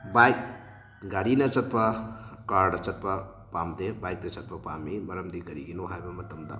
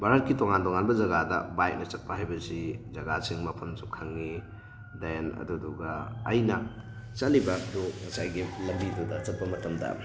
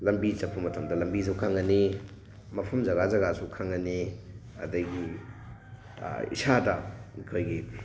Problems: background sounds at intervals